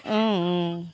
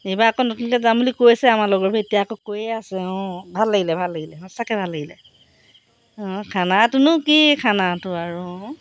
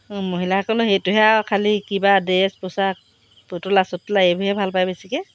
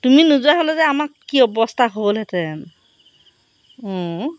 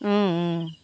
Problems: background sounds at intervals